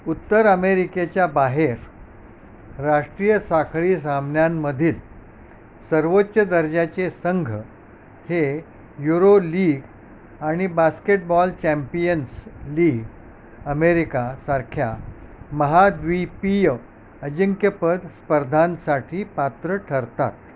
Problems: constant background noise